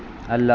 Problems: constant background noise